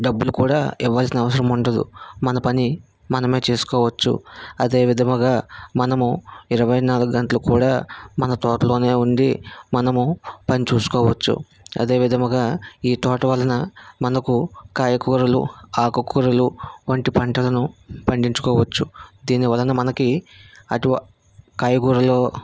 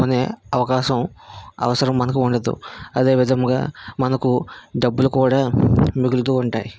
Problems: background sounds at intervals